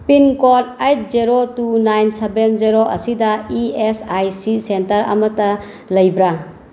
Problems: background sounds at intervals